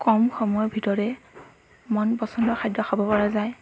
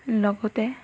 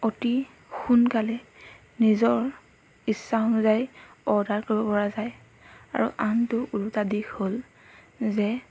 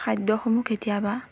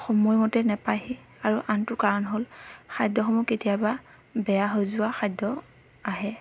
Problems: background sounds at intervals